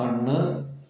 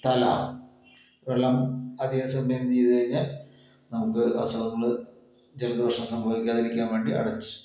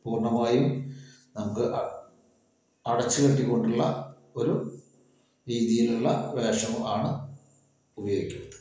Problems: echo